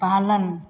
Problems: none marked